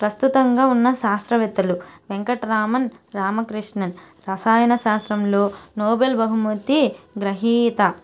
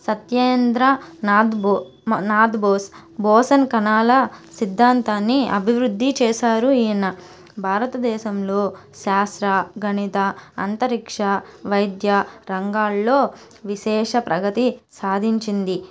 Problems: constant background noise